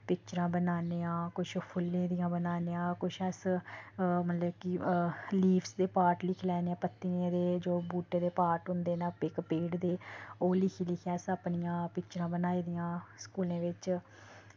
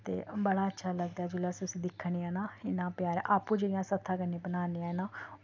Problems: none marked